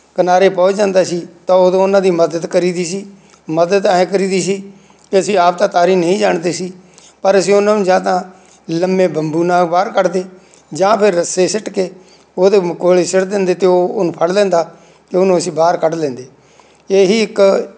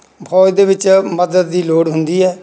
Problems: none marked